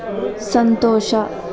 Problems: constant background noise